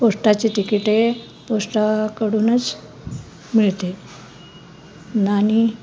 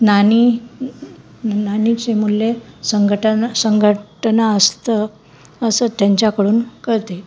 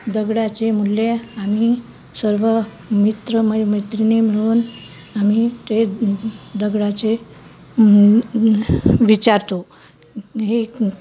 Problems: constant background noise